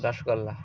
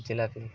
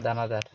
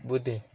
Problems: none marked